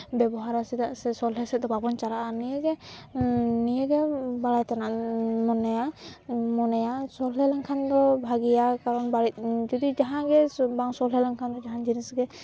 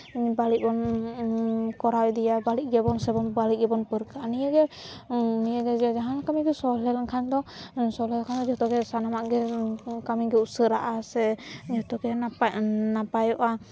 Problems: none marked